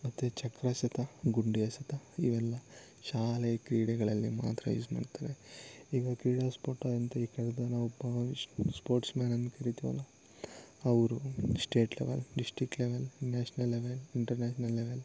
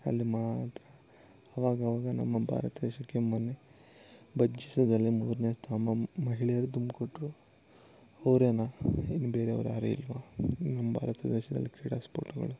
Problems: none marked